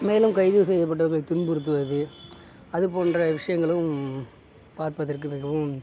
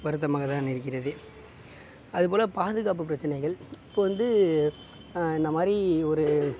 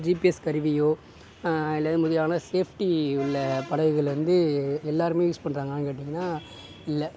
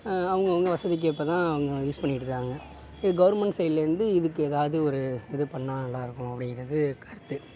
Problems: constant background noise